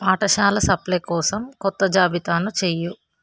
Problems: background sounds at intervals